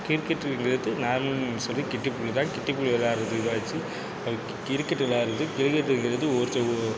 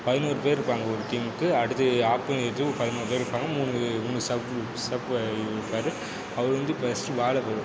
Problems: none marked